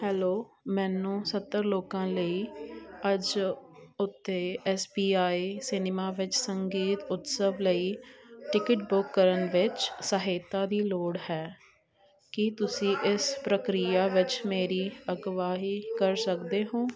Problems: continuous background conversations